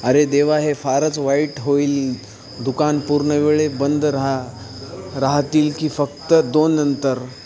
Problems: none marked